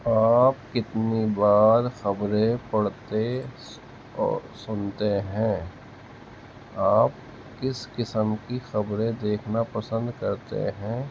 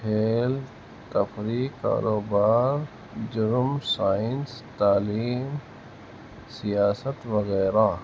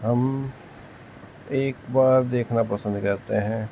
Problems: constant background noise